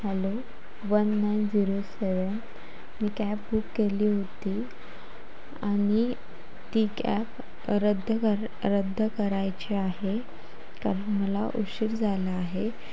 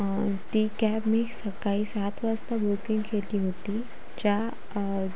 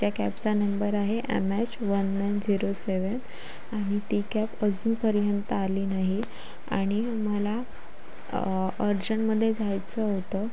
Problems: constant background noise, background conversations at intervals